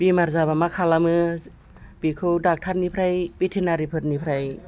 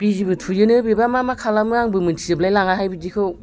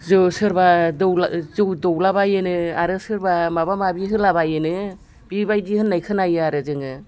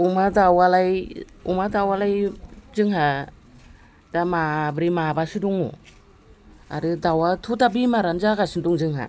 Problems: none marked